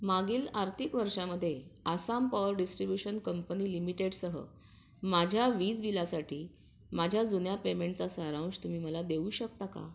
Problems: none marked